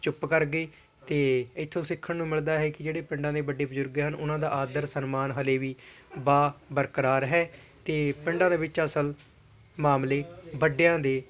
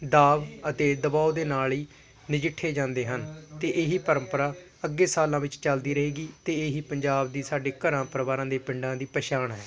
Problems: constant background noise, continuous background conversations